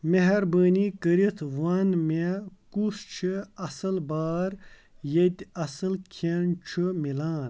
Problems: none marked